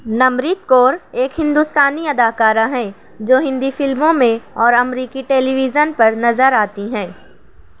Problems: constant background noise